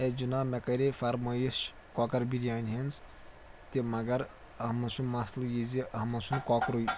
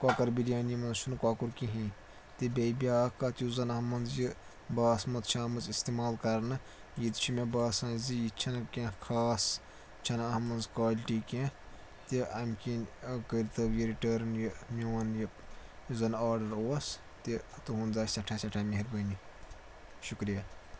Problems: constant background noise